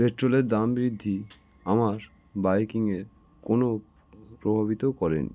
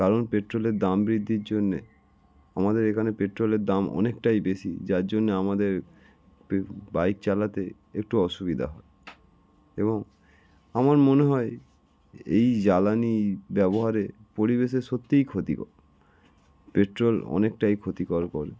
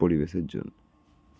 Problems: none marked